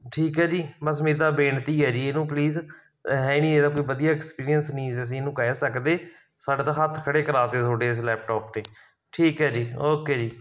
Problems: none marked